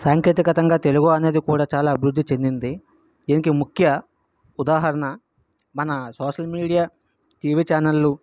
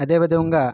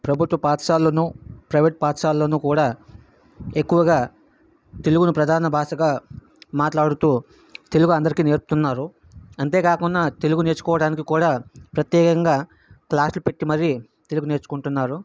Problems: background sounds at intervals